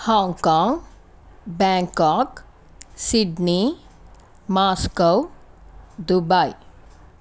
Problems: constant background noise